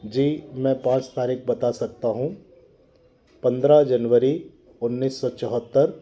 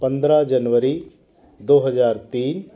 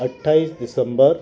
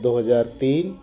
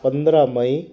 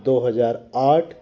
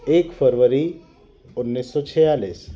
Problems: background conversations at intervals